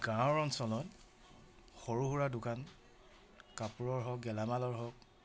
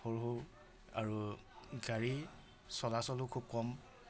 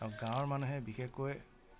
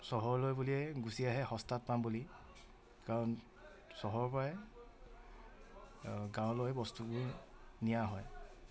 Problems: none marked